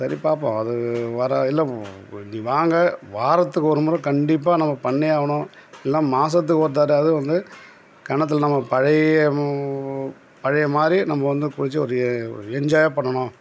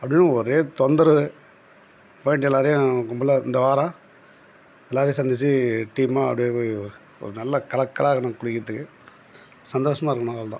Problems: background sounds at intervals